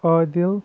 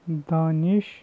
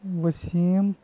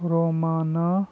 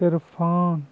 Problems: constant background noise, low volume